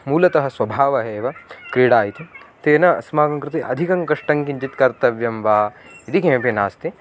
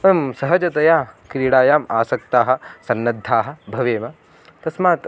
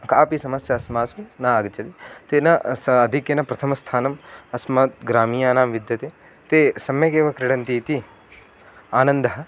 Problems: background sounds at intervals